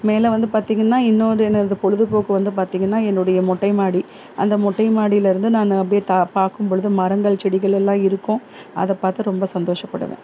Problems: constant background noise